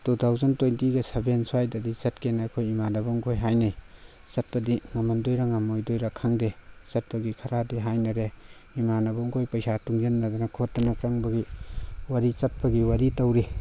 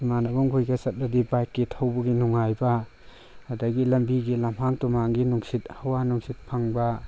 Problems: background sounds at intervals